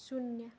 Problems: background sounds at intervals